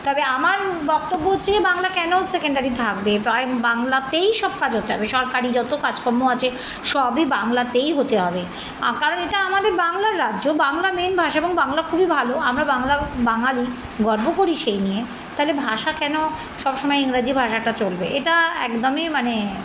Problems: background sounds at intervals